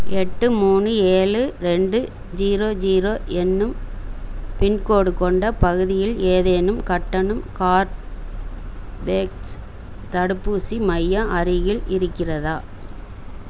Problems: constant background noise